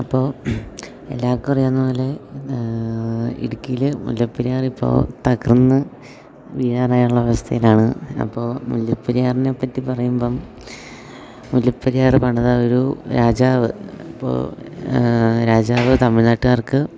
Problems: background sounds at intervals